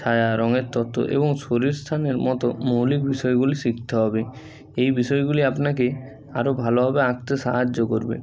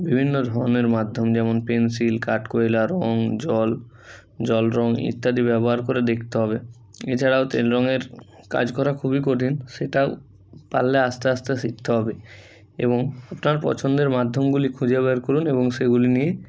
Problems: none marked